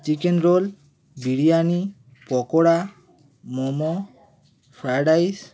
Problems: constant background noise, continuous background conversations